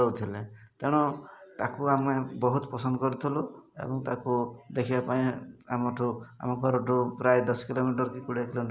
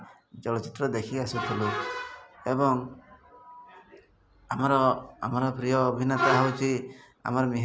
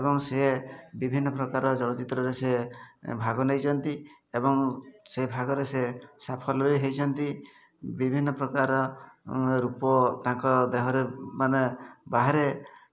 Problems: constant background noise, continuous background conversations